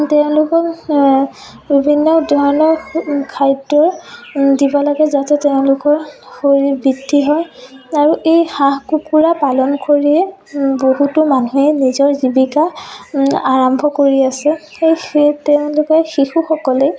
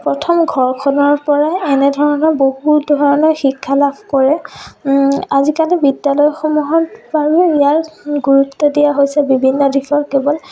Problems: continuous background conversations